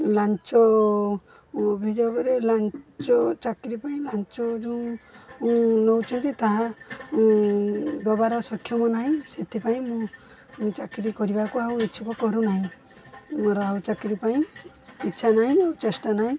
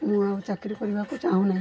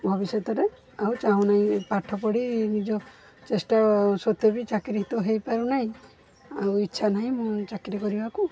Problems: constant background noise